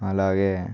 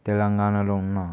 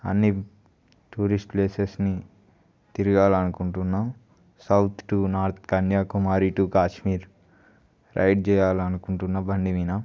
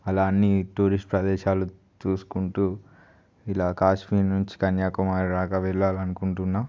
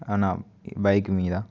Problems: none marked